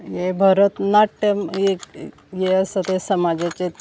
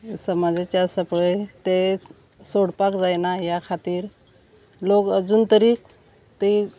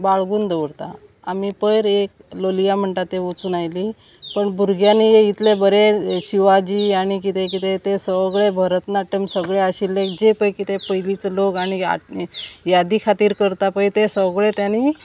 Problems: none marked